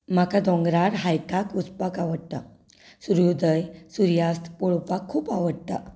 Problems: none marked